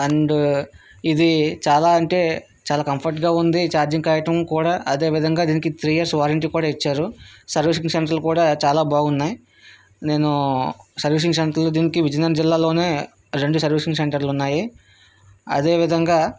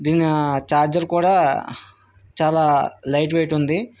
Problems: none marked